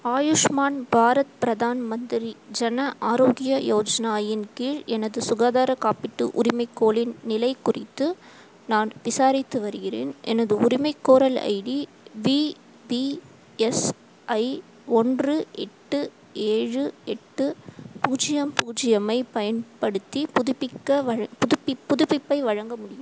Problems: constant background noise